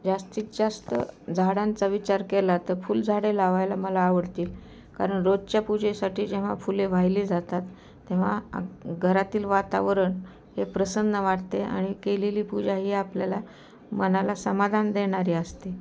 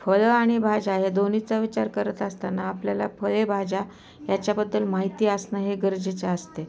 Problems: constant background noise, continuous background conversations